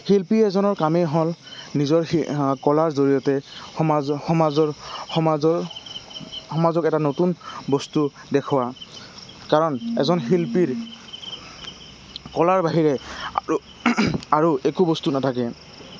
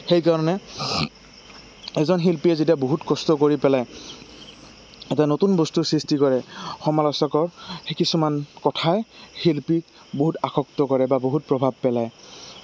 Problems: constant background noise